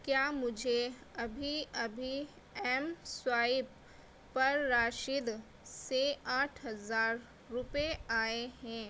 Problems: none marked